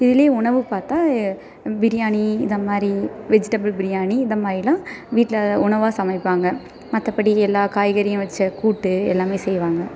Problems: constant background noise